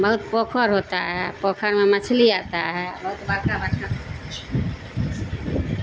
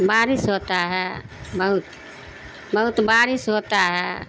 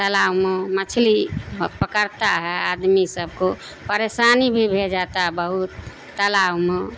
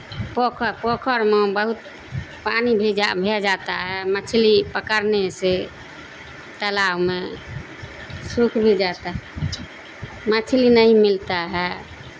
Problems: constant background noise